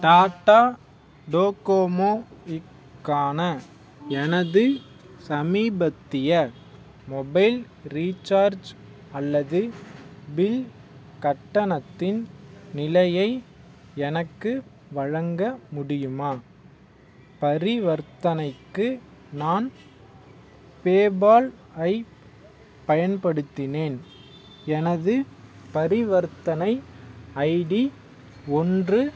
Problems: background sounds at intervals